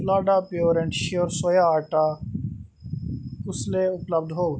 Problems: background sounds at intervals, echo